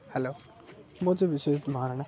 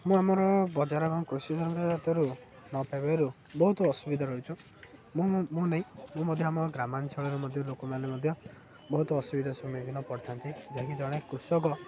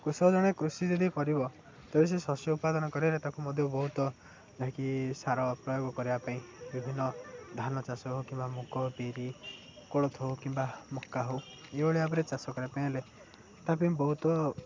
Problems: none marked